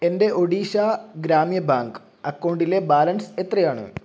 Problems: none marked